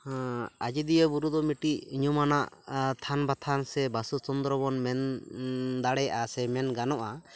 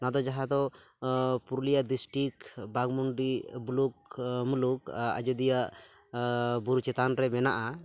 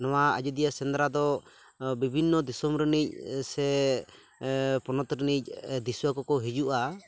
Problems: none marked